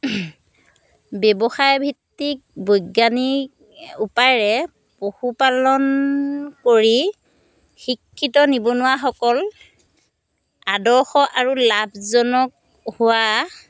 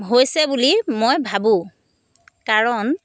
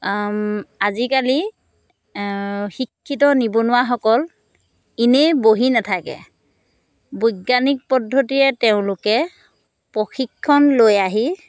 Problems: constant background noise